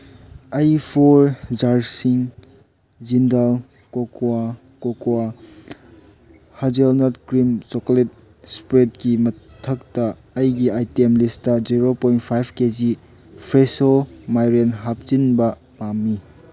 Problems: background sounds at intervals